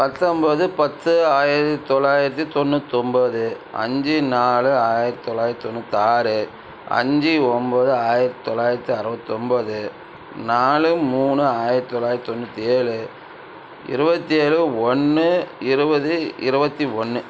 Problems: none marked